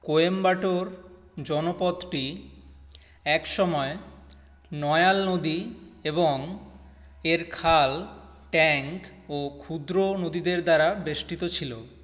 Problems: none marked